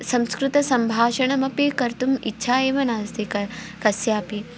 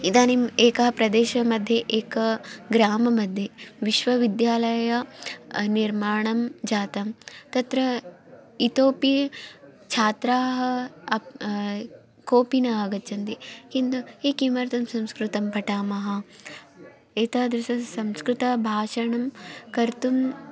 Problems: none marked